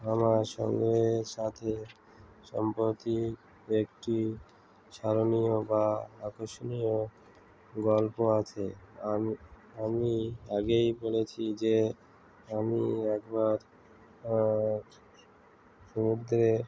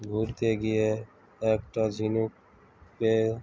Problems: constant background noise, background conversations at intervals